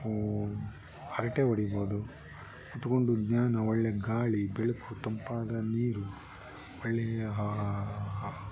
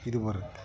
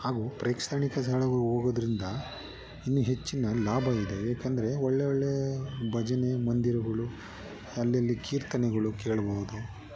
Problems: background sounds at intervals